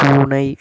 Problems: constant background noise